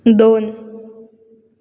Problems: constant background noise